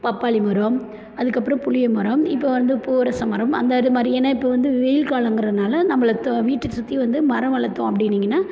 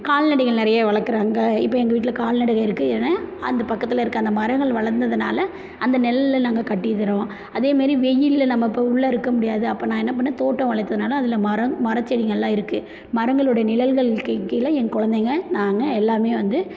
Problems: constant background noise